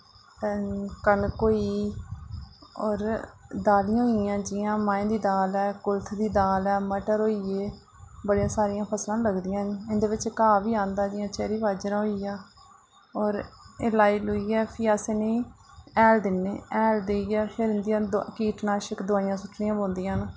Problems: low volume